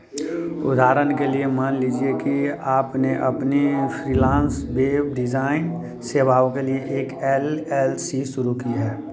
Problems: continuous background conversations